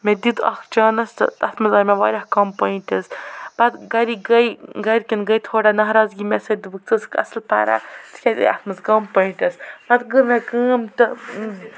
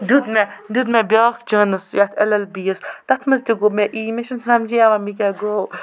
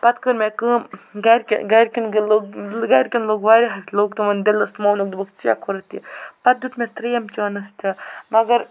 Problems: constant background noise, background conversations at intervals